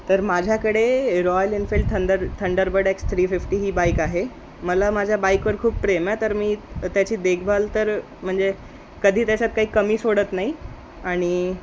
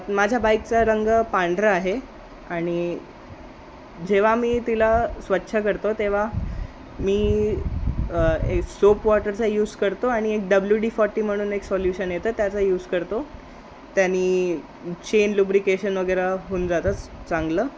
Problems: constant background noise